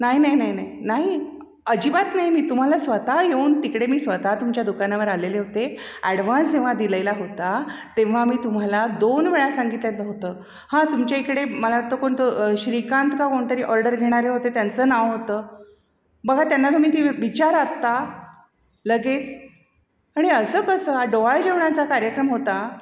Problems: background sounds at intervals, echo